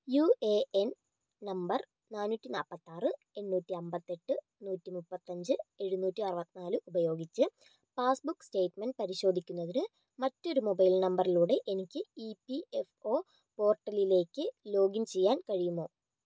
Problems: low volume